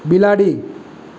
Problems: none marked